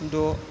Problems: constant background noise